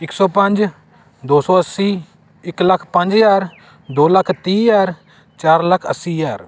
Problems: constant background noise